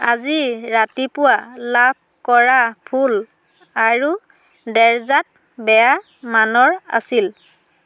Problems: constant background noise